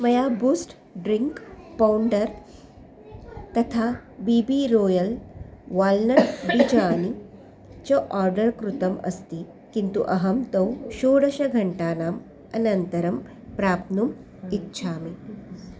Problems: background sounds at intervals